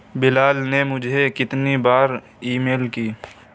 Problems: constant background noise